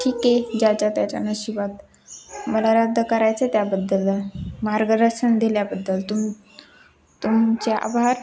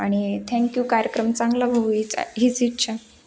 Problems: constant background noise, background conversations at intervals